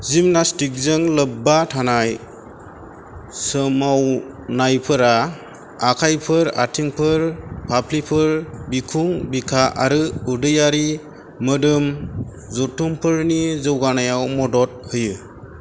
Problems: constant background noise